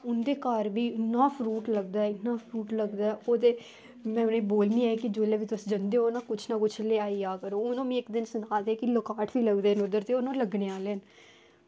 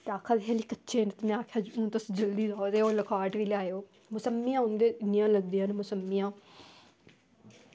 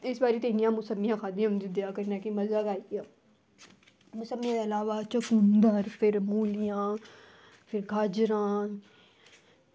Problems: none marked